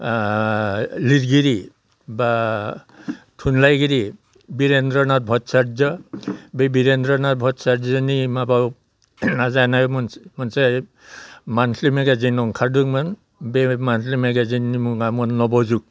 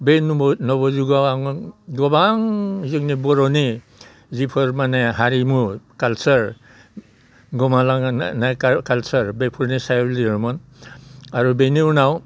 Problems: constant background noise